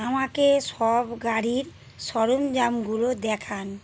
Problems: constant background noise